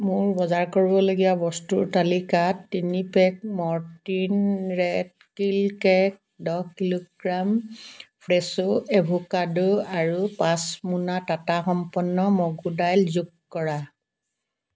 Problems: none marked